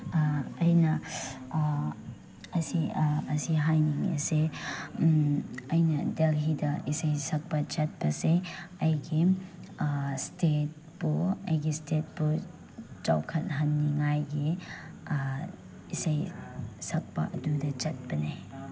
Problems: none marked